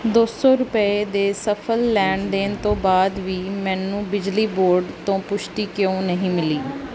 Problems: constant background noise